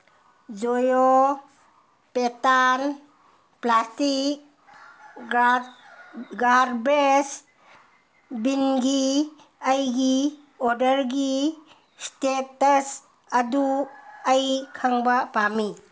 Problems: background sounds at intervals